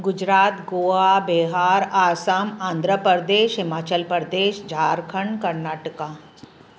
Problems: constant background noise